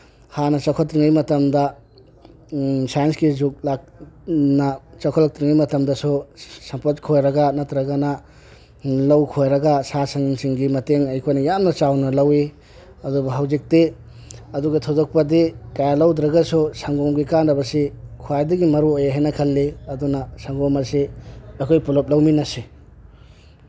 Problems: background sounds at intervals